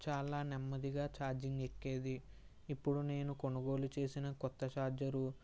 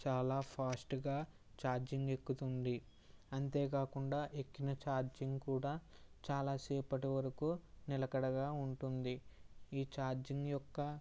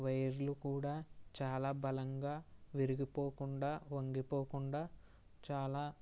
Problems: none marked